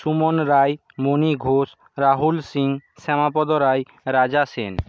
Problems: none marked